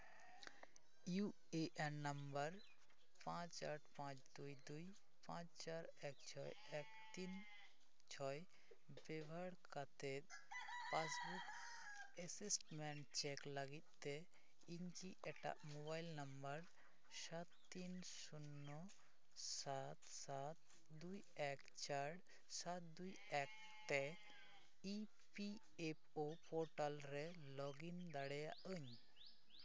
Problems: constant background noise, background conversations at intervals